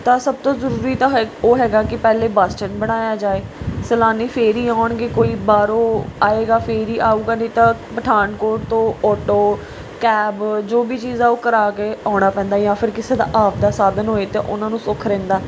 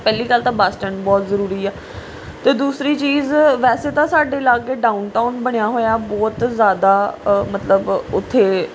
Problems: background sounds at intervals, background conversations at intervals